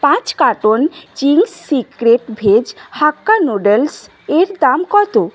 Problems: constant background noise